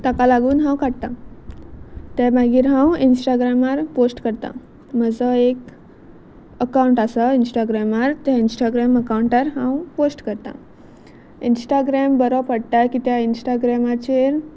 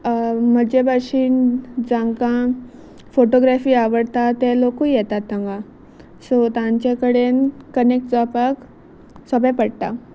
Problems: none marked